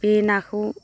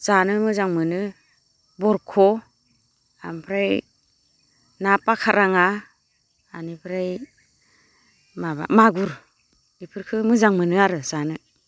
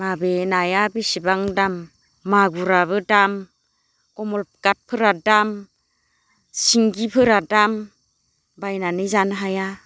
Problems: low volume